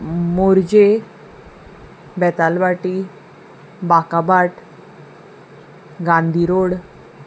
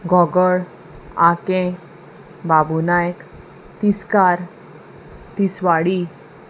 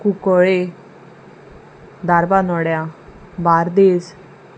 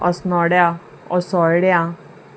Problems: none marked